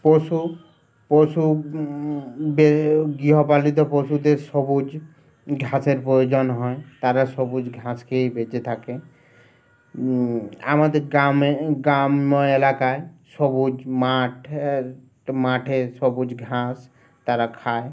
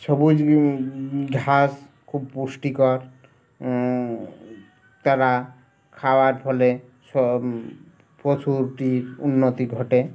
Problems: none marked